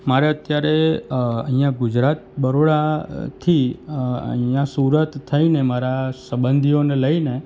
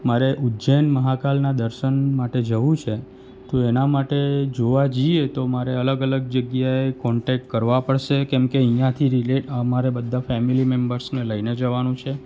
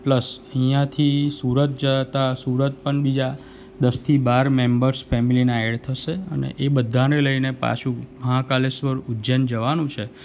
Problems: none marked